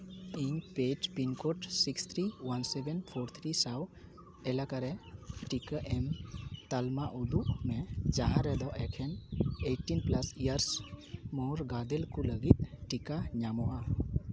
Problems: constant background noise, background conversations at intervals